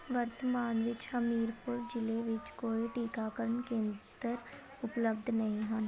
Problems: constant background noise, background conversations at intervals